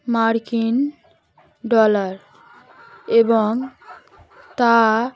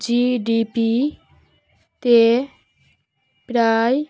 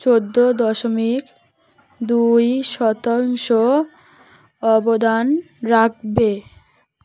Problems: constant background noise